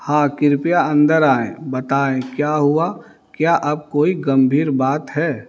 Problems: none marked